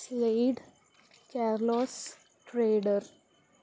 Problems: none marked